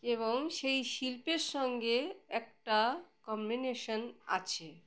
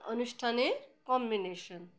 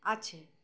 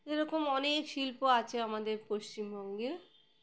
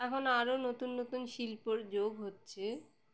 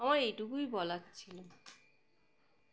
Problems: background sounds at intervals